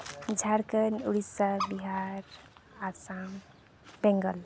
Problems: none marked